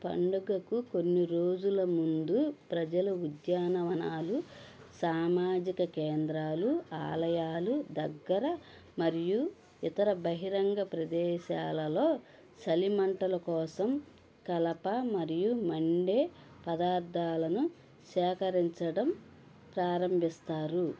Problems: none marked